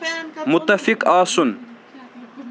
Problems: constant background noise